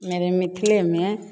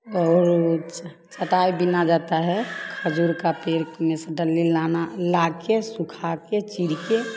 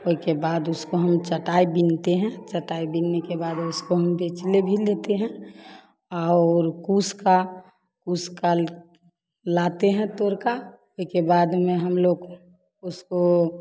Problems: continuous background conversations